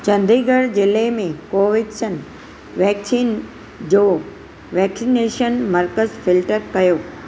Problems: none marked